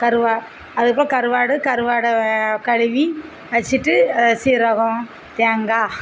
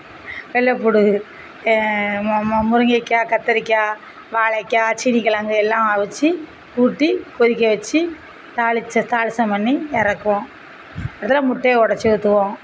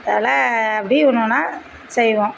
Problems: none marked